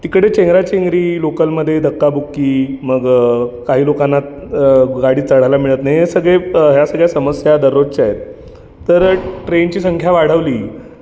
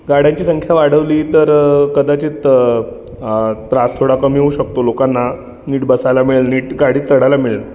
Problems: constant background noise, continuous background conversations